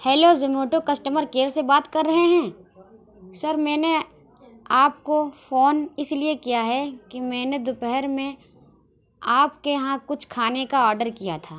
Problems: background sounds at intervals